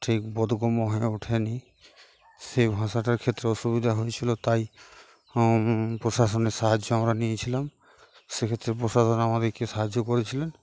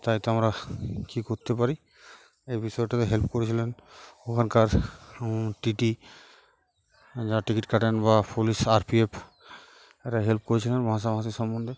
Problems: none marked